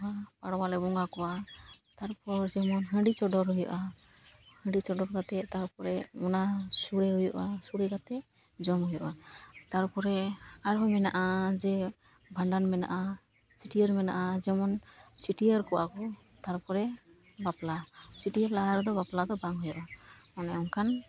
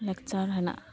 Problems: constant background noise